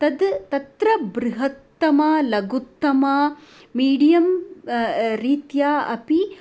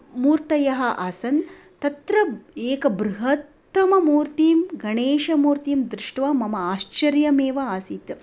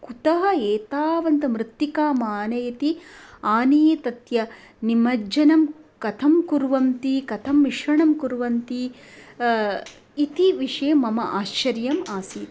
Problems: background sounds at intervals